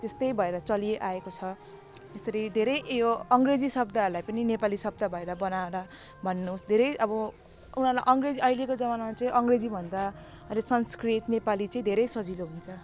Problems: constant background noise